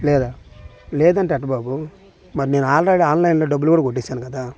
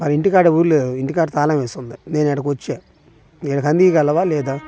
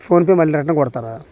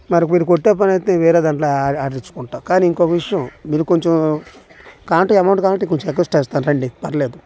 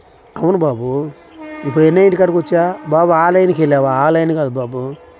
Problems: background sounds at intervals